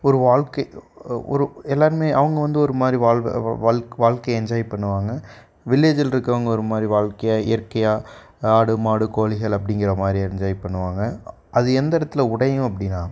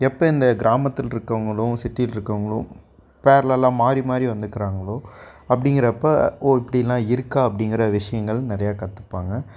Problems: background sounds at intervals